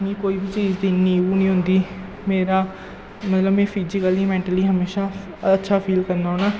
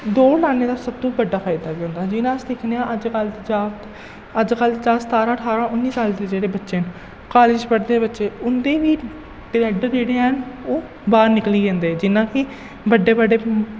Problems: echo, low volume